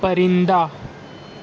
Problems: constant background noise